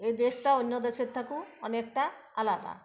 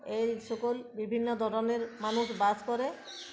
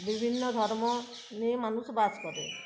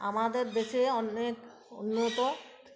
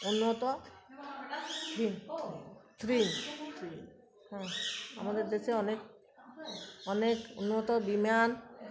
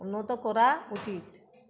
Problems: constant background noise